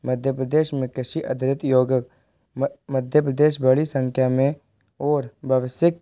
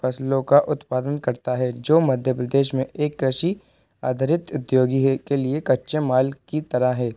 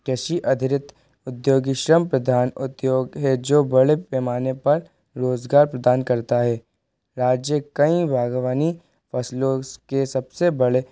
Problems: constant background noise